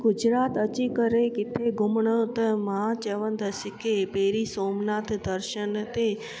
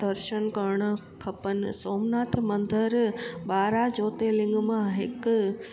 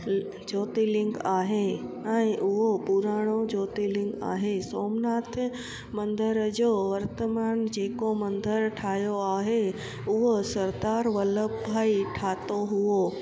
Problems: constant background noise